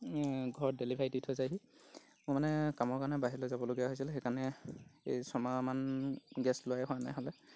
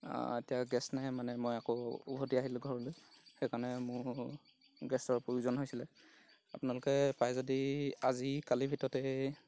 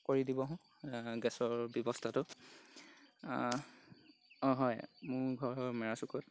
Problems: background sounds at intervals